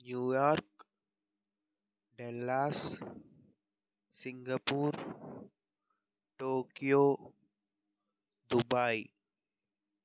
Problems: low volume